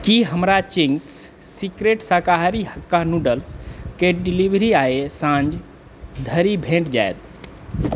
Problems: background conversations at intervals